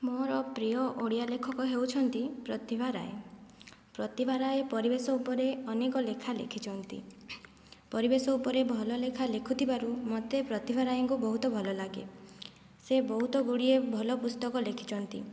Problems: low volume